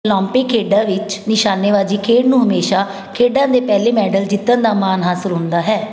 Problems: background conversations at intervals